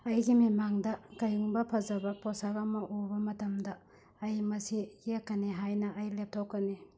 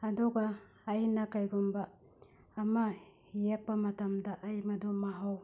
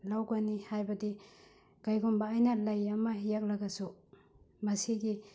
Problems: none marked